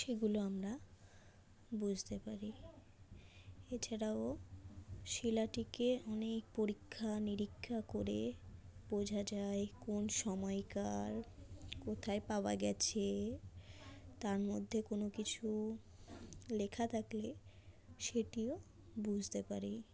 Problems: background sounds at intervals